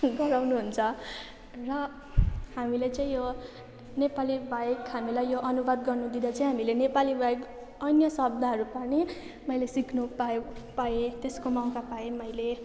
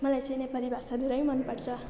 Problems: constant background noise